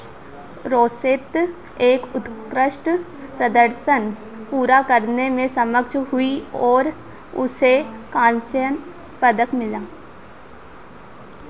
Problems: constant background noise